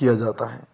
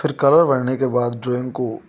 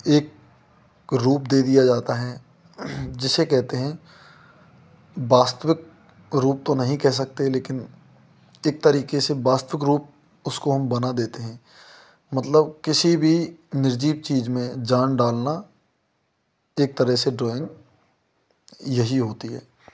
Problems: constant background noise